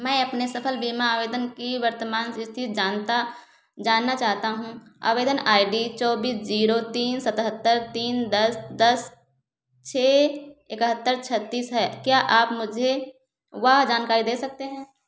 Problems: echo